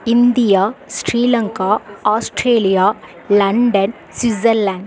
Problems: continuous background conversations